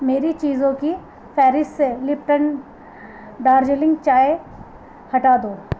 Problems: constant background noise